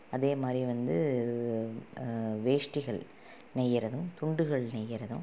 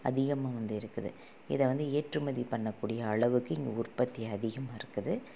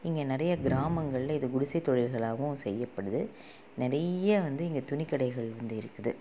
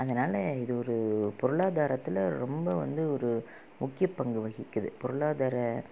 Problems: low volume